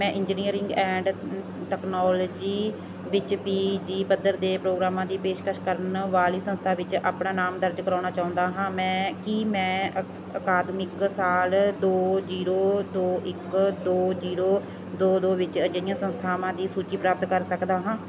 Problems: none marked